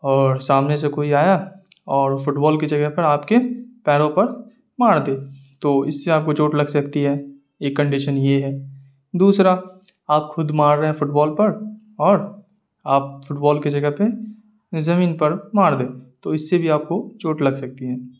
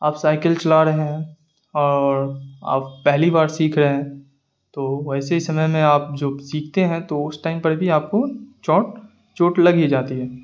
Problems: none marked